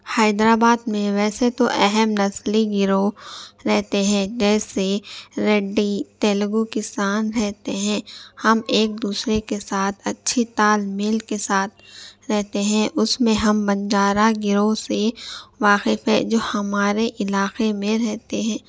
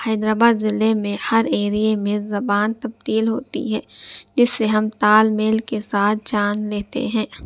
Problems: none marked